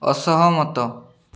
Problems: none marked